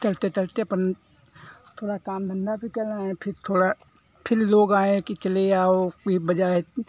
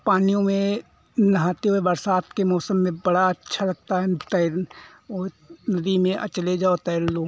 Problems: constant background noise